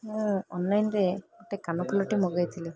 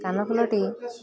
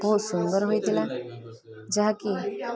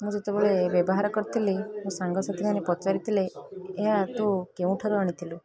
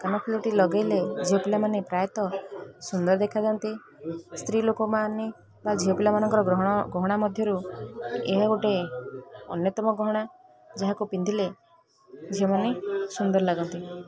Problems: none marked